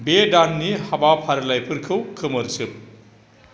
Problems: constant background noise